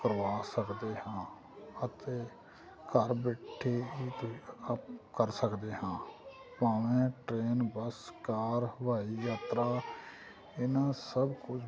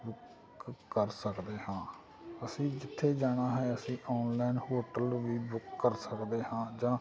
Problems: constant background noise, background conversations at intervals